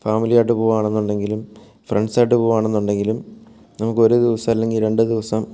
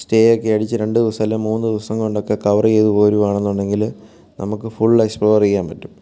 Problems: none marked